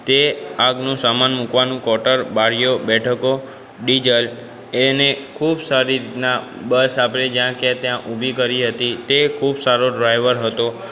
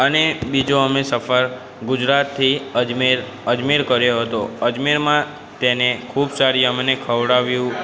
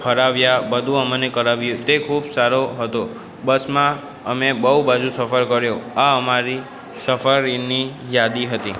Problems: background conversations at intervals